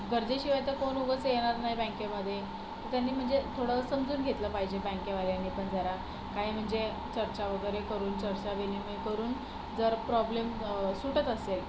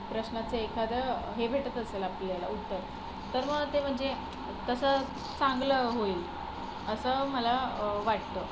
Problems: none marked